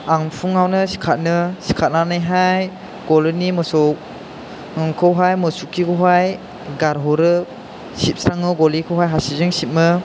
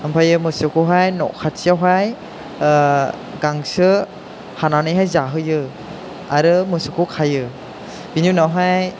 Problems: constant background noise